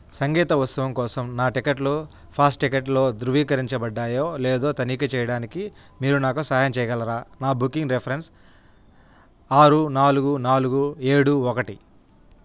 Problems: none marked